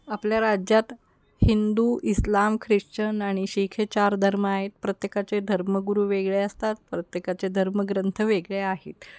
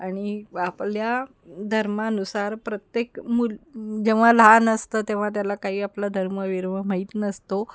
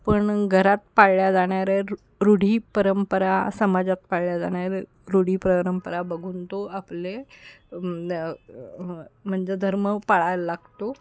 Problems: background sounds at intervals